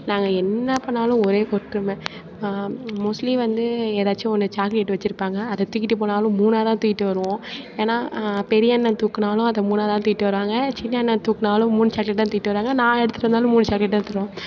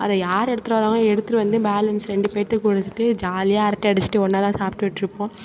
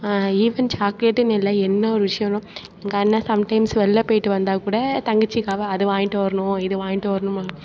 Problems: background sounds at intervals, continuous background conversations